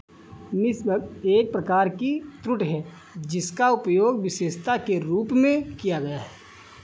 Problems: background sounds at intervals